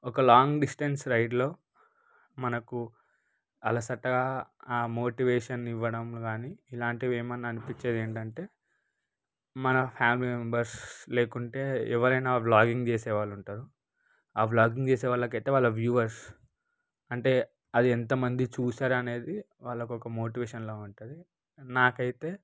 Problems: none marked